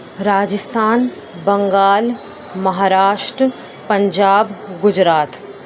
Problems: constant background noise